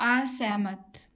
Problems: none marked